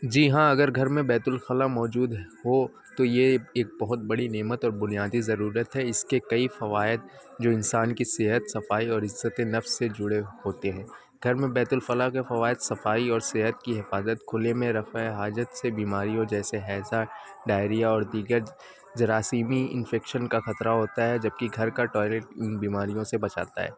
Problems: constant background noise